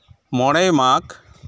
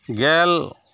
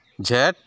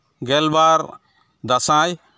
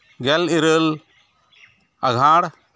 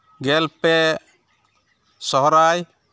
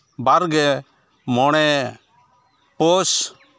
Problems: background sounds at intervals